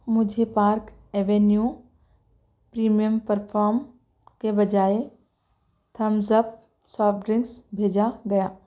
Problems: background sounds at intervals